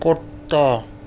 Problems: none marked